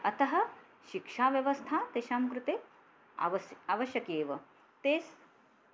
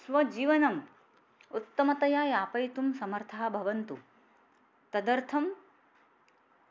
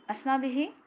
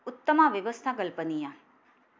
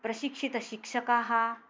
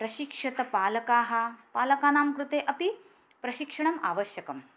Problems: none marked